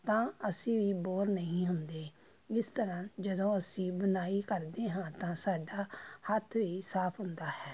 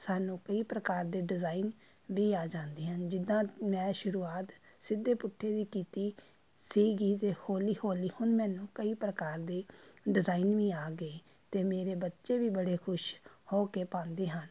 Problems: constant background noise